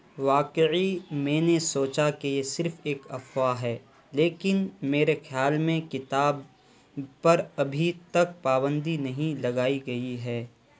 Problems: constant background noise